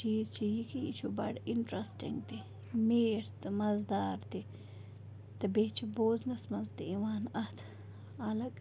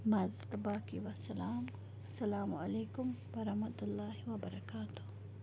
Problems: background sounds at intervals, background conversations at intervals, low volume